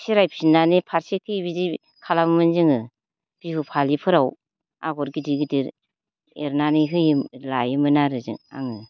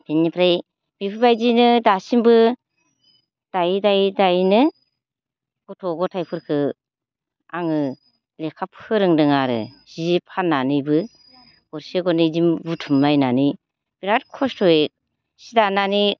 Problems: low volume